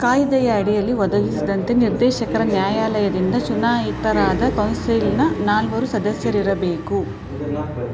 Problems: constant background noise